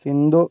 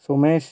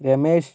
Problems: none marked